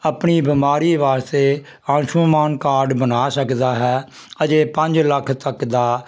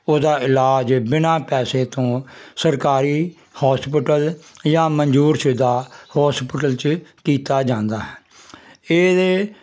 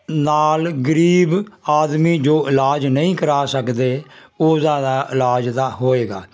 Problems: constant background noise